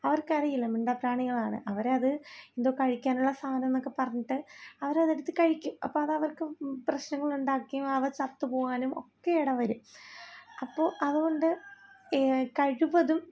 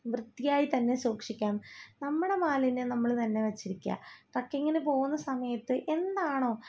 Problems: low volume